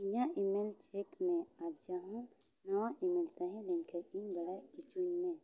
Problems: background sounds at intervals, low volume